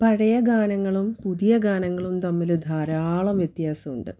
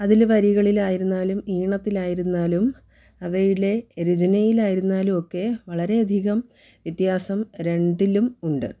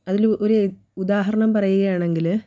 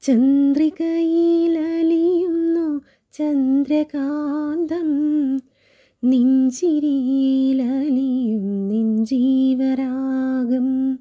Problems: none marked